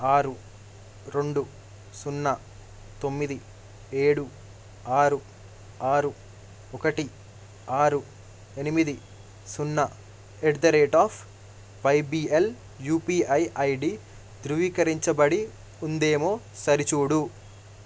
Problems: none marked